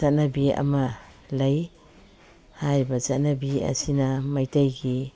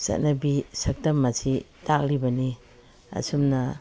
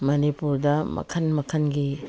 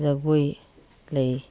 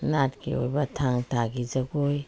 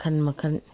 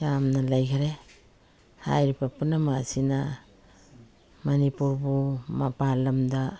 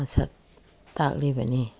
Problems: background sounds at intervals